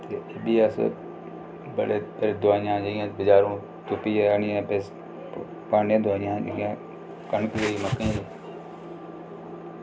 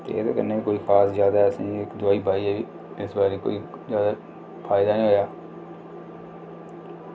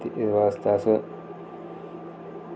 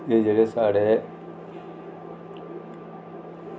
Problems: constant background noise